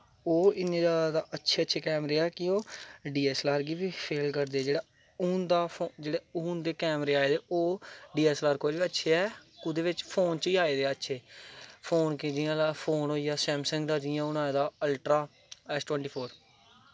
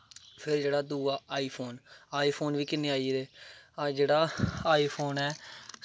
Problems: none marked